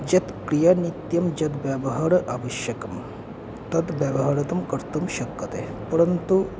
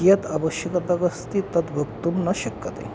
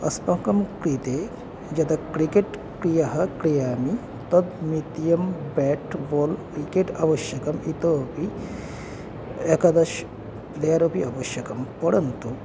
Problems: constant background noise